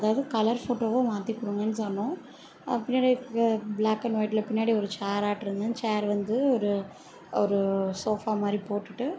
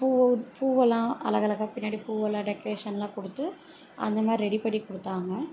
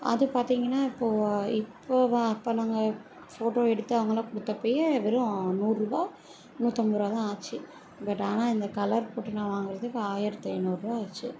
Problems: none marked